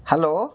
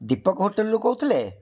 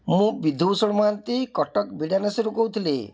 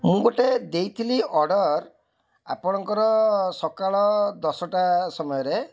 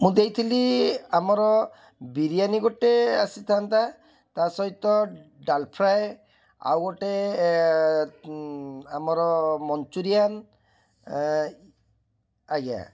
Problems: background sounds at intervals, background conversations at intervals